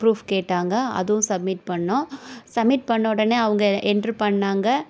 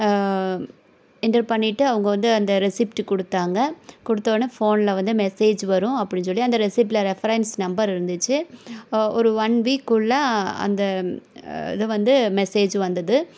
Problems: none marked